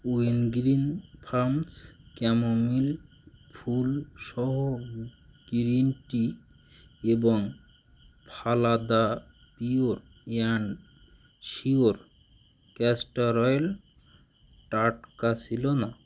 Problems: none marked